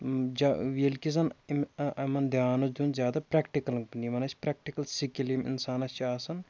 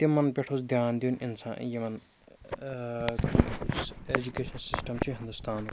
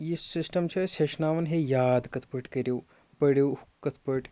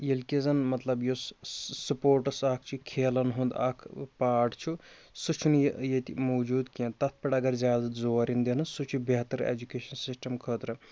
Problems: constant background noise